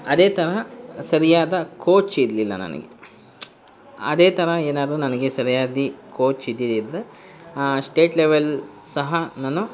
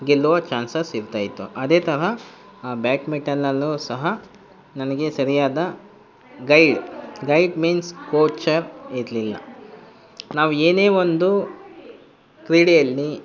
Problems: constant background noise